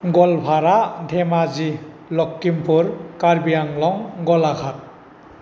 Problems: constant background noise